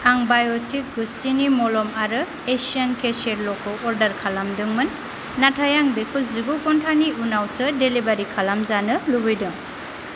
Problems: none marked